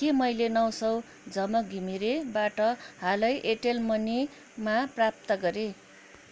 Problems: none marked